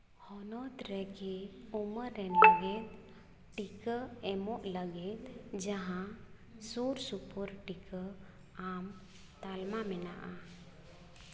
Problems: constant background noise